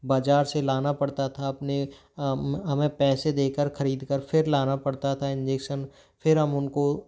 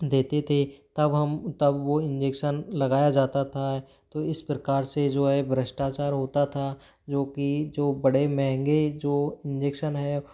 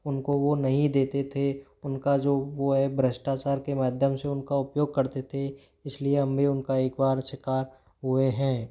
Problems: background sounds at intervals